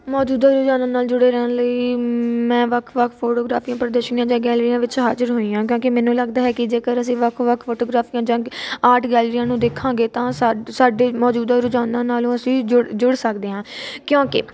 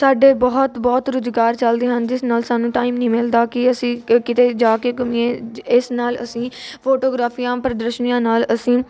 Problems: none marked